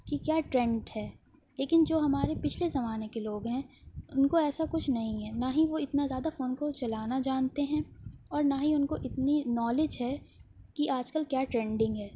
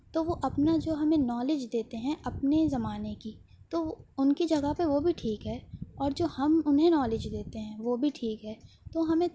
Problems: none marked